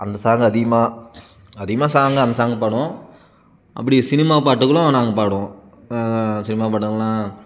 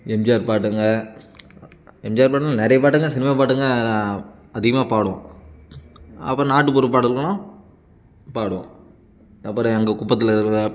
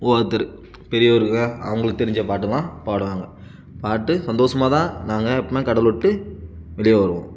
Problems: background sounds at intervals